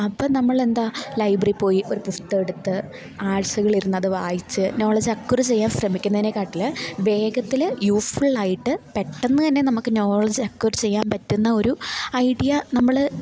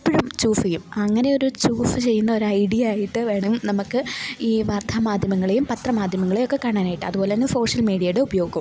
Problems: constant background noise, low volume